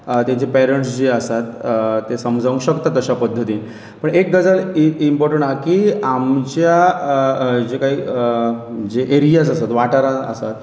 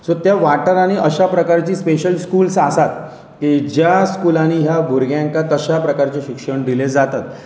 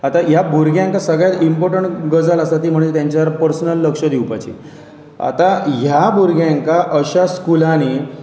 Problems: background sounds at intervals